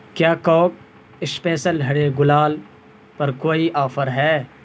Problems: constant background noise